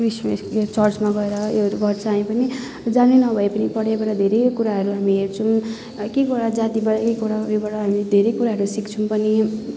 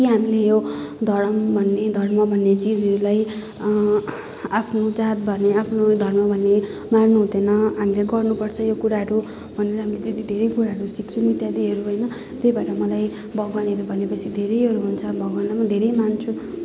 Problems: none marked